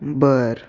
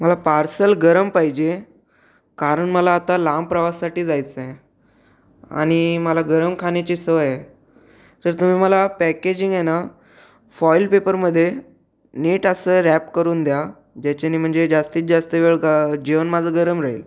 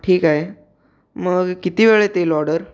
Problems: background sounds at intervals